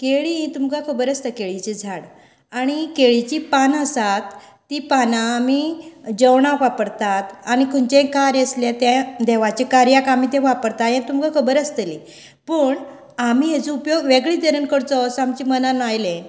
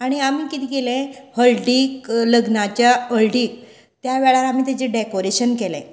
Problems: background conversations at intervals